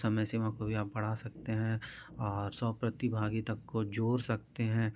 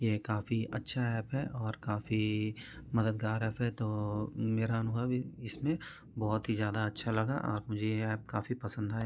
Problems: background conversations at intervals